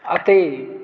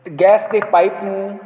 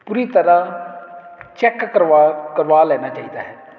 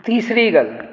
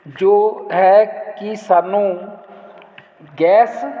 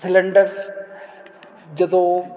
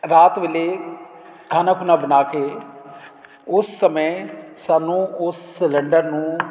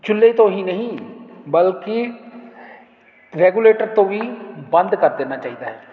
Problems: none marked